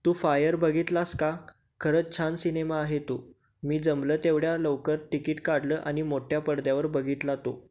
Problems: constant background noise